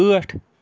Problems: constant background noise